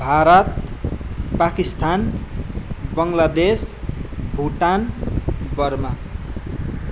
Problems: none marked